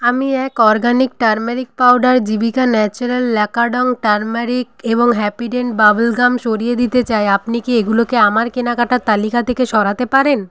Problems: constant background noise